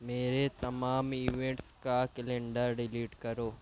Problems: low volume